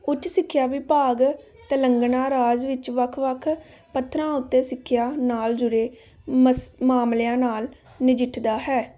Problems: background conversations at intervals